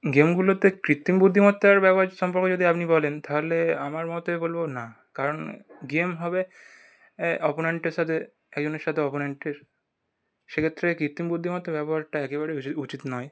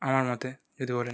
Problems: background sounds at intervals